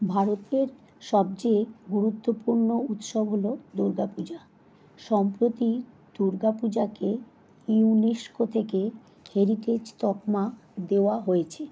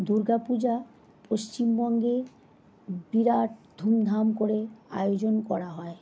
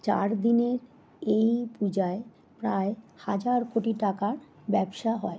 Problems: background sounds at intervals